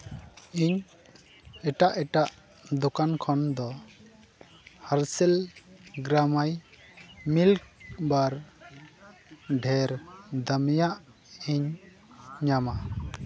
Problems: background sounds at intervals, continuous background conversations